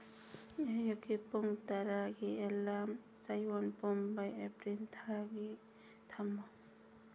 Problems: low volume